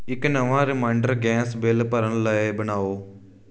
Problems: background sounds at intervals